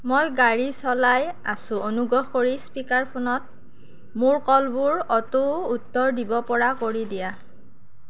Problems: constant background noise